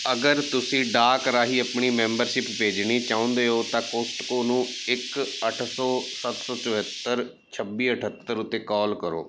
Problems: background sounds at intervals